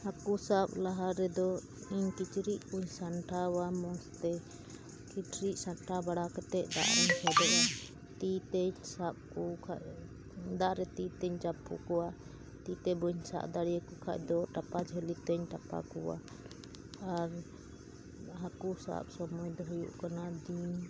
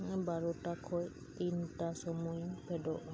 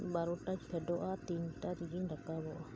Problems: constant background noise